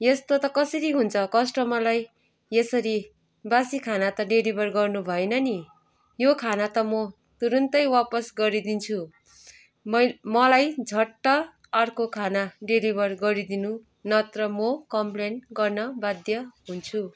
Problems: none marked